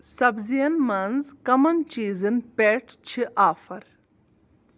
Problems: none marked